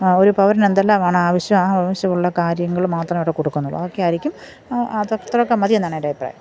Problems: background sounds at intervals